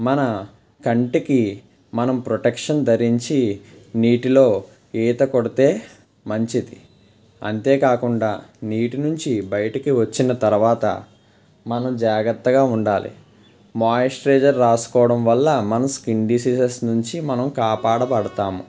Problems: constant background noise